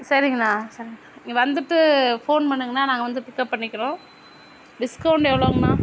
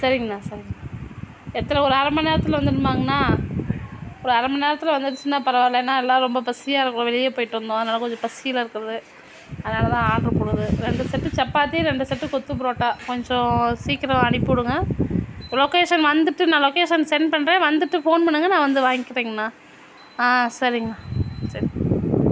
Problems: constant background noise